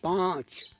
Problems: constant background noise